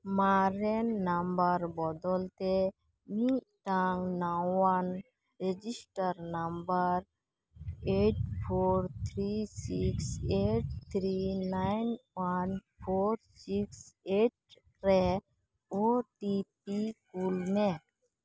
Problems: none marked